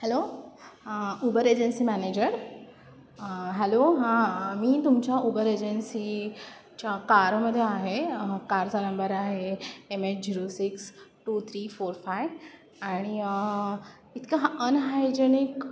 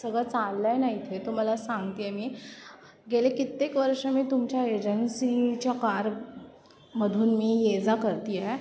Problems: none marked